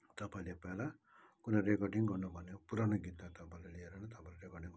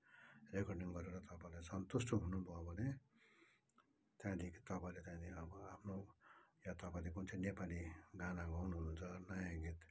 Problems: background sounds at intervals